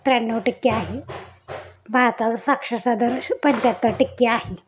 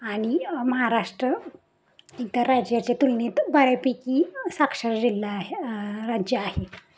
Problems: none marked